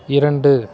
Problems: constant background noise